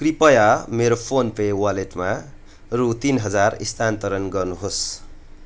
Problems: none marked